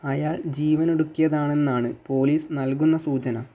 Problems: none marked